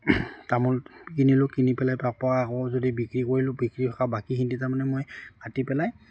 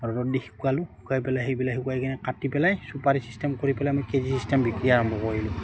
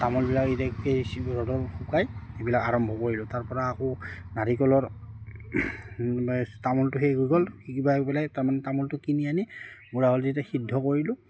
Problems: constant background noise